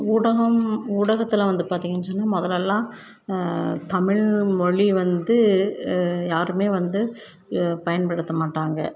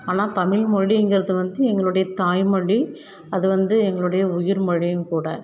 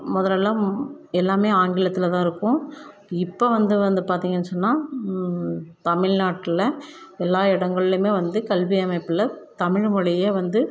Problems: none marked